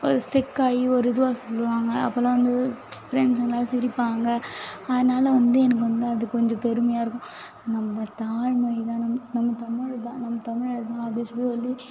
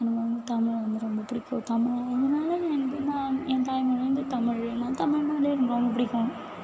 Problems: constant background noise